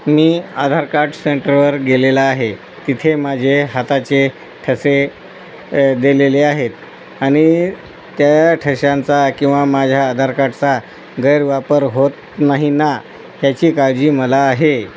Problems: constant background noise